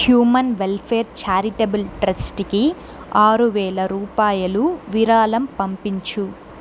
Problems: constant background noise